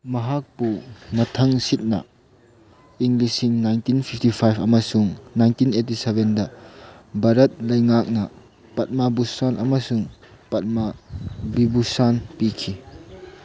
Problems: constant background noise